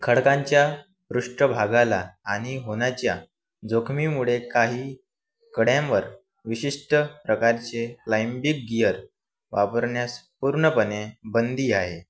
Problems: none marked